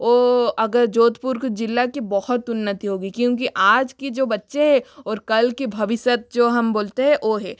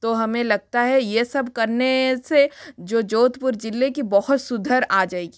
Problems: none marked